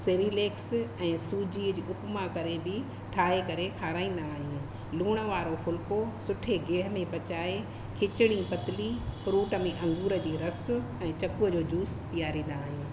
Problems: constant background noise, echo